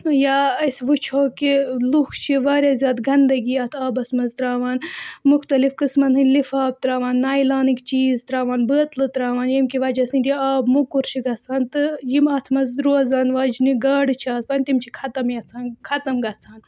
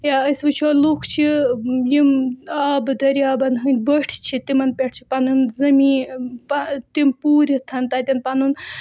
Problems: background sounds at intervals